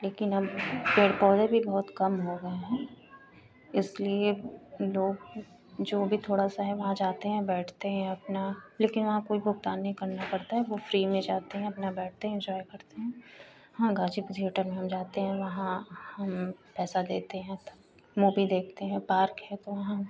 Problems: none marked